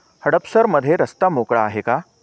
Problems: none marked